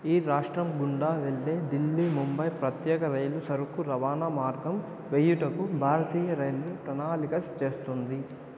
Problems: none marked